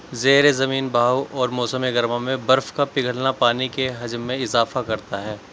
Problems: background sounds at intervals